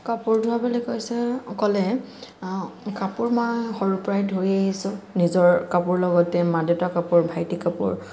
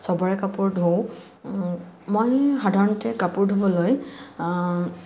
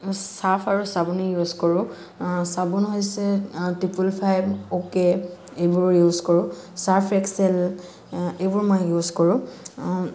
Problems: constant background noise